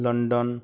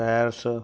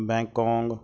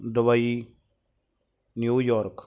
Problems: none marked